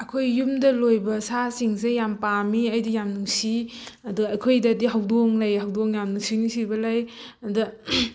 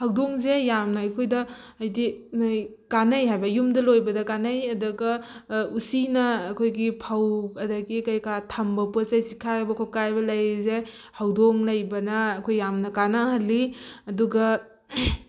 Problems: none marked